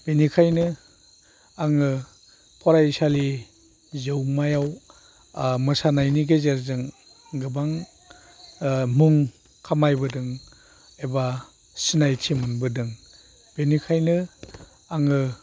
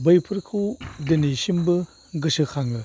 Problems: constant background noise